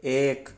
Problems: background sounds at intervals